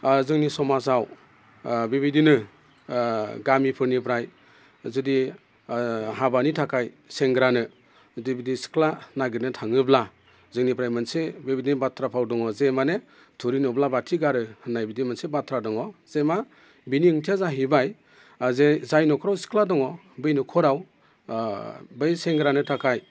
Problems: constant background noise